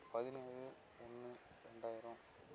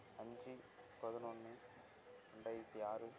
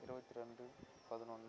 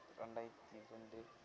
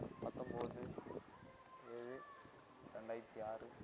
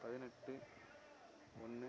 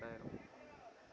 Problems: low volume